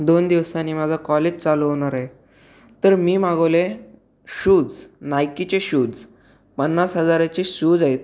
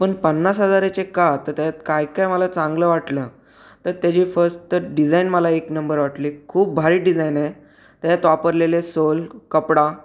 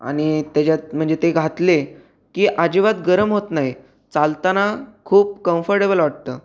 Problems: background sounds at intervals